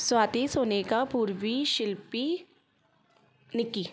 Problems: constant background noise